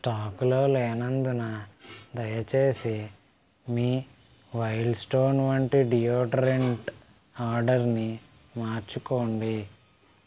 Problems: background sounds at intervals